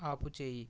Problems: none marked